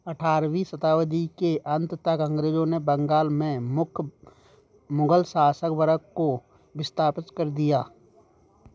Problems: background sounds at intervals